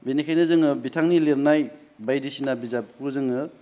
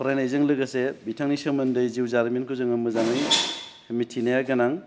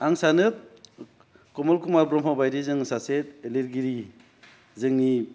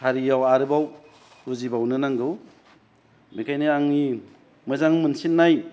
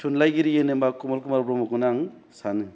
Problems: none marked